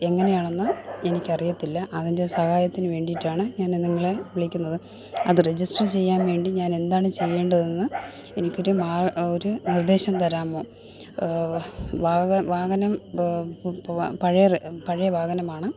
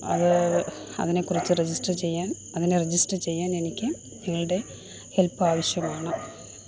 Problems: constant background noise